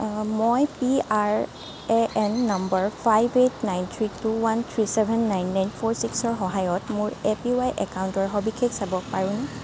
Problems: background sounds at intervals